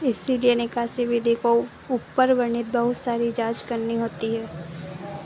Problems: constant background noise